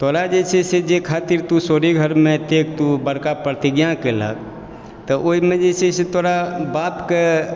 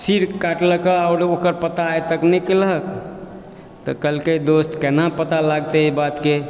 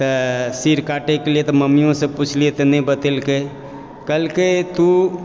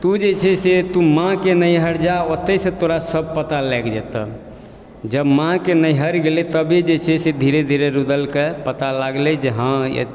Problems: background sounds at intervals